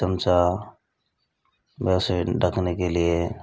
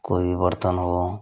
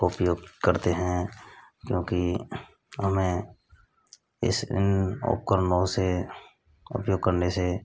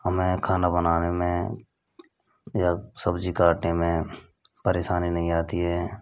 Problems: constant background noise